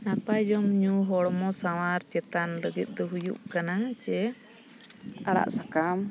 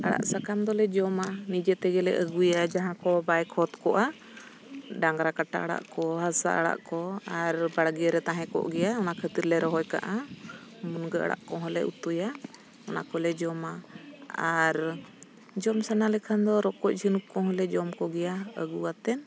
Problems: constant background noise